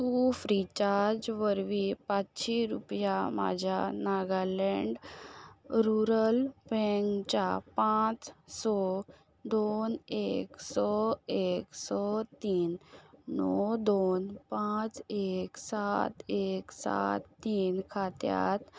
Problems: background sounds at intervals